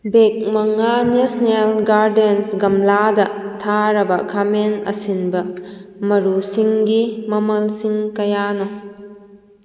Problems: echo